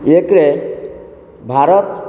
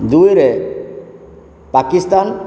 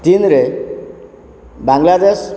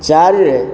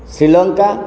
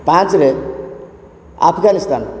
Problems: constant background noise